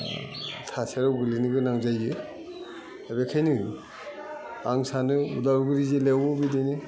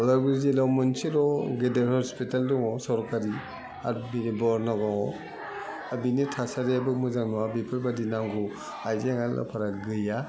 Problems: low volume